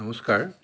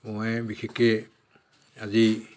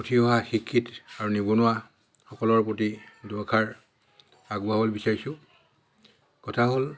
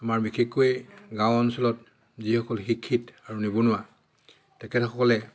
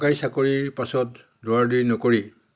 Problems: background sounds at intervals